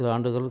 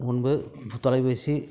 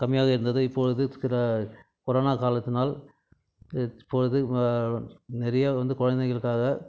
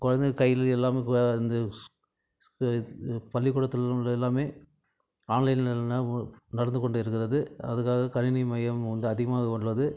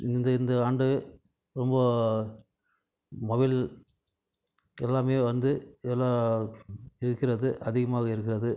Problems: background conversations at intervals